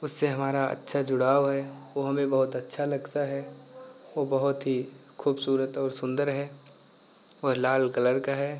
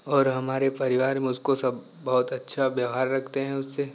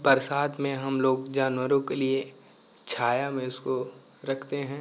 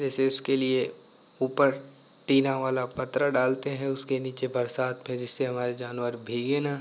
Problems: none marked